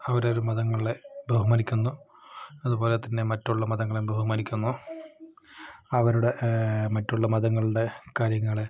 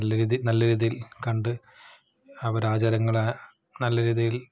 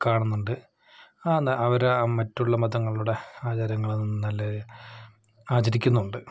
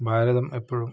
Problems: background sounds at intervals